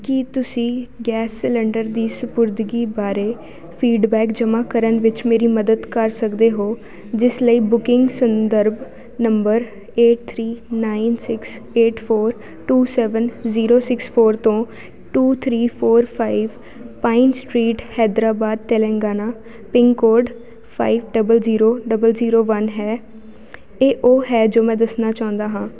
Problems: none marked